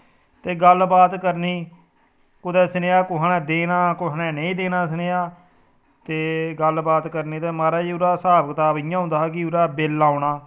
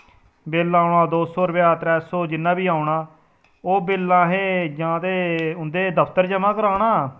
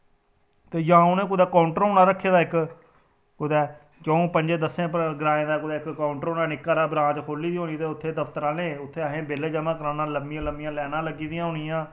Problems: none marked